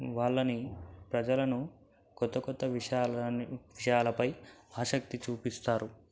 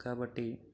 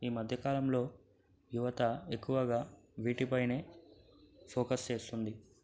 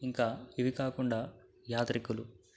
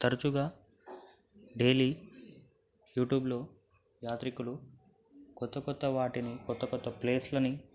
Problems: background sounds at intervals, low volume